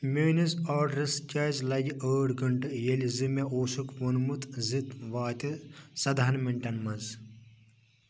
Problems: none marked